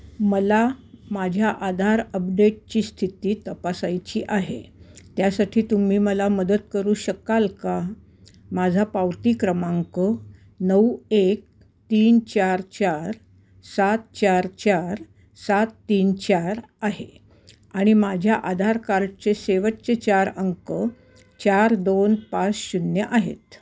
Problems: background sounds at intervals, background conversations at intervals